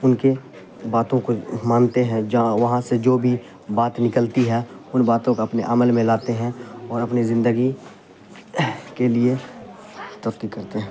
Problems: constant background noise